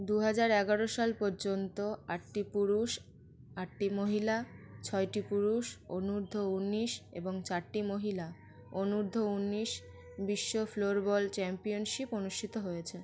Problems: none marked